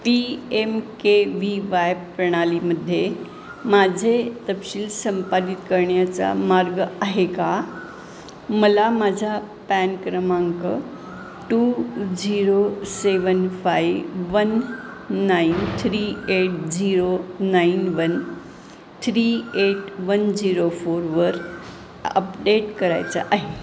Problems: constant background noise